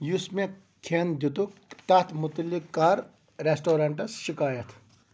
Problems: background sounds at intervals